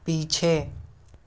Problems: constant background noise